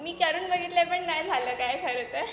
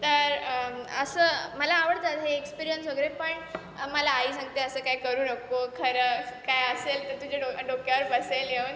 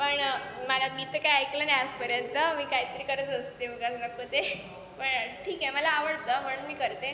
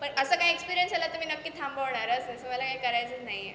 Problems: constant background noise, background conversations at intervals, echo